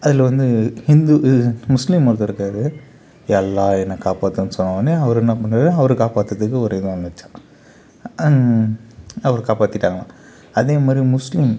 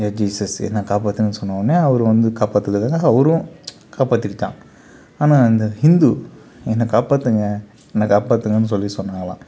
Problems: background sounds at intervals, background conversations at intervals